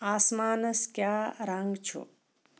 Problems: none marked